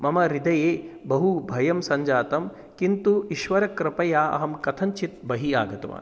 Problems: none marked